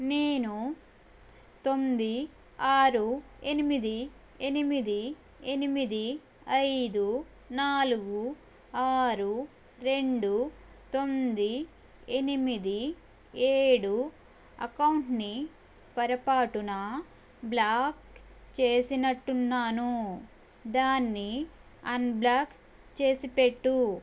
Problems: none marked